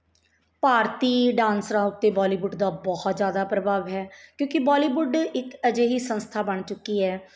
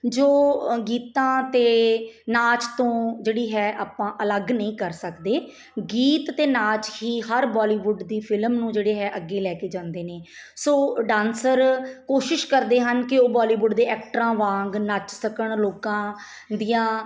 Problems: none marked